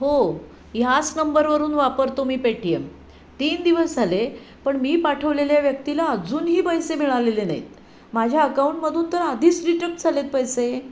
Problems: none marked